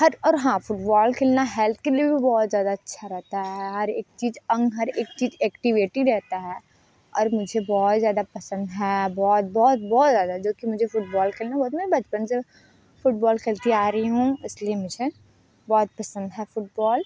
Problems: background sounds at intervals